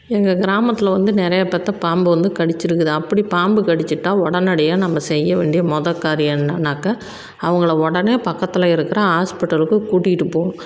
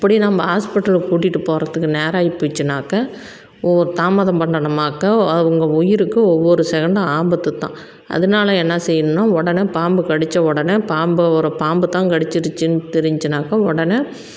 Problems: constant background noise